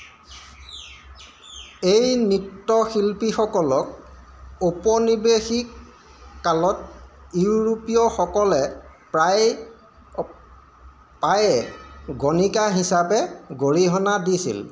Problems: constant background noise